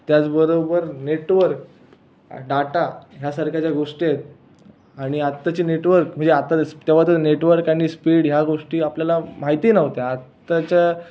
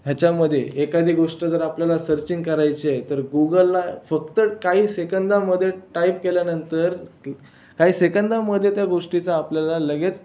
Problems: none marked